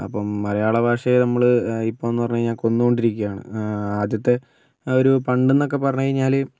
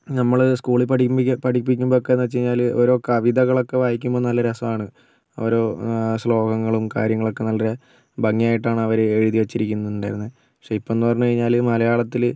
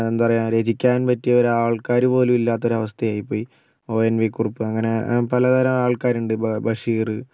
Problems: background sounds at intervals